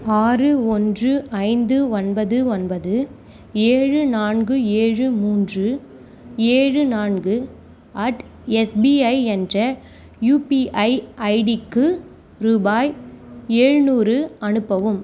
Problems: constant background noise